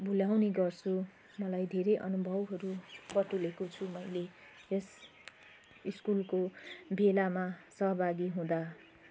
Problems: none marked